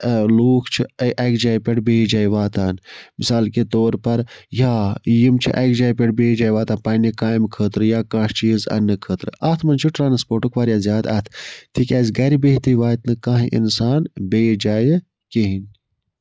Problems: background sounds at intervals